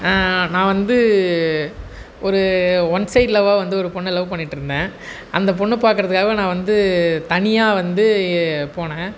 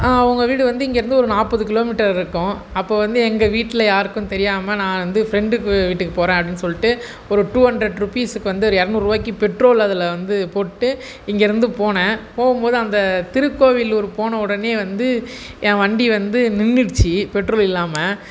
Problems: background sounds at intervals